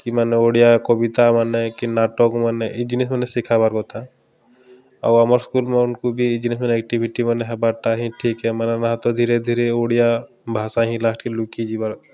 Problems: constant background noise